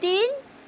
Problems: none marked